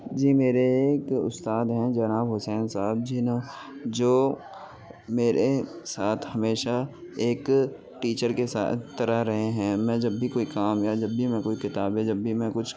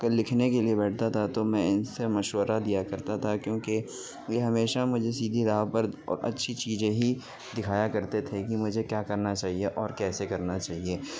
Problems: constant background noise